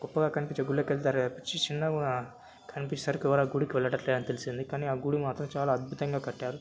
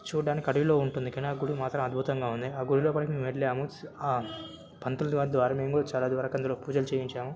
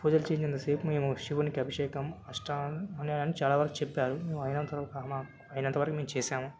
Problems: background sounds at intervals